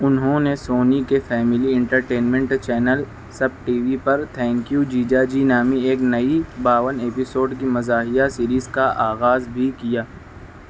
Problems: constant background noise